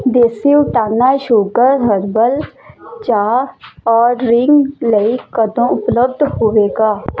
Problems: constant background noise